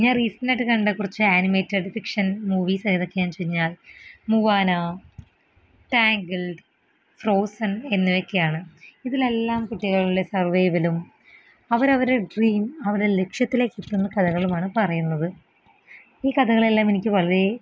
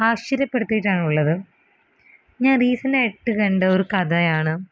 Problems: none marked